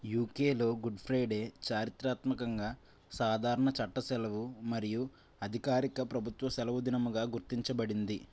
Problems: none marked